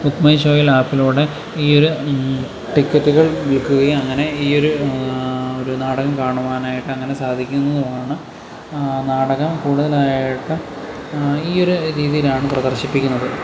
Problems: constant background noise